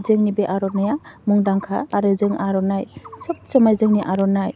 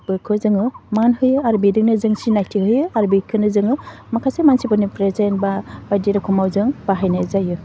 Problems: none marked